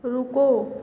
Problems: constant background noise